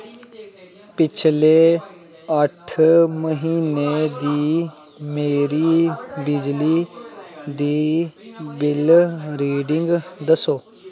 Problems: constant background noise